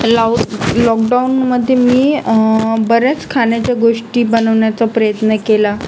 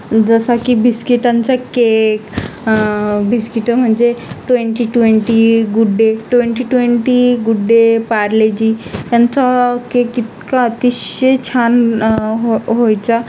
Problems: constant background noise, background conversations at intervals